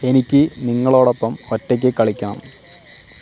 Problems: constant background noise